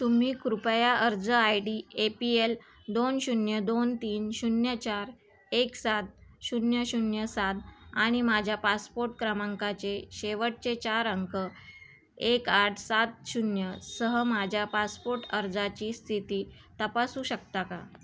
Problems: background sounds at intervals, background conversations at intervals